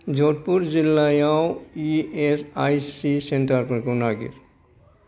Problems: none marked